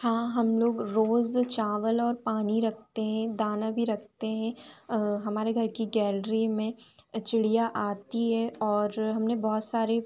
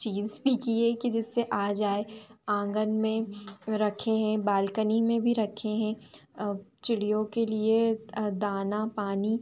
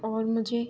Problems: none marked